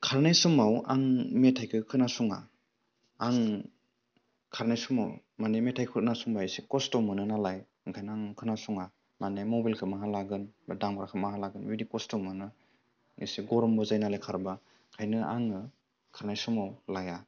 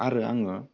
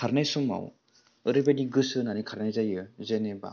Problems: low volume